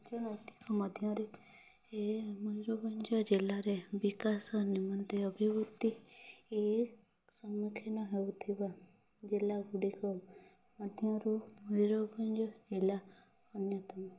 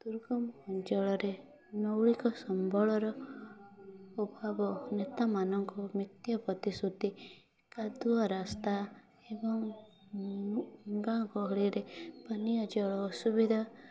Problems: constant background noise, continuous background conversations